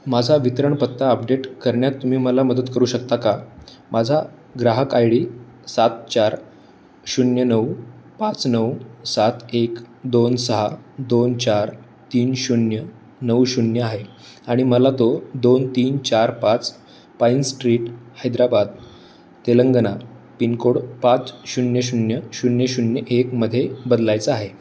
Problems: none marked